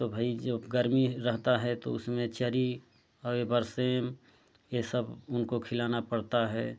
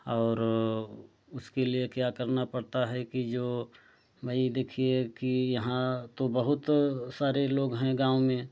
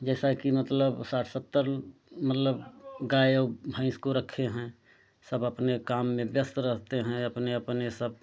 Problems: none marked